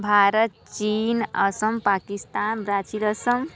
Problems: none marked